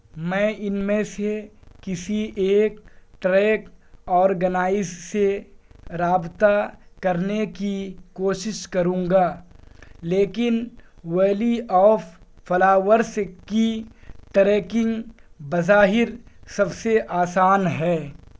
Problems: background sounds at intervals